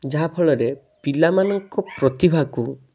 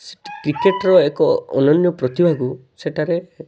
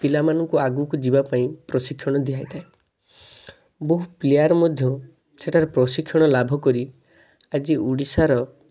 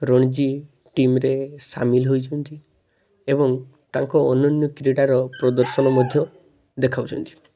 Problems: constant background noise, continuous background conversations